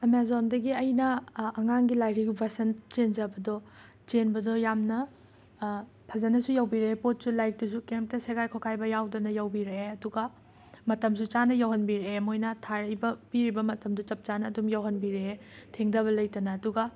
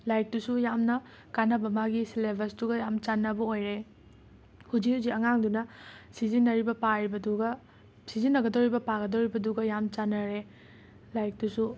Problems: constant background noise